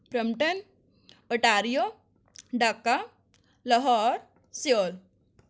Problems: none marked